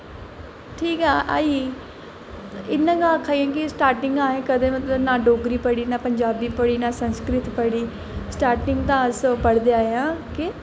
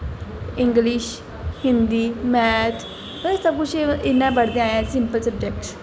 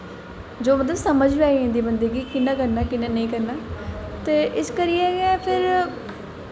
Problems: constant background noise, echo